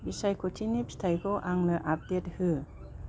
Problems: low volume